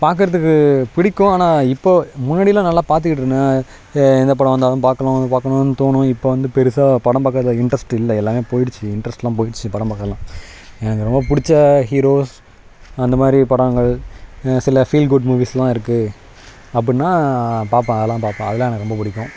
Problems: background sounds at intervals